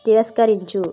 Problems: constant background noise